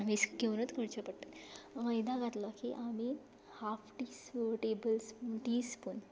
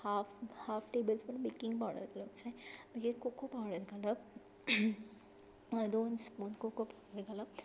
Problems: background sounds at intervals, low volume